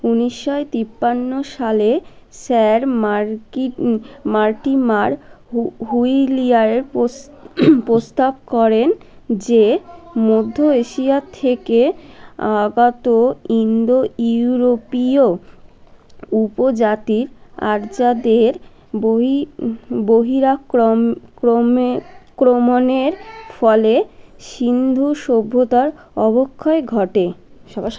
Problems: constant background noise